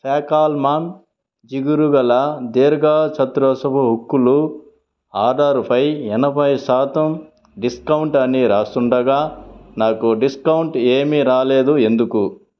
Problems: background sounds at intervals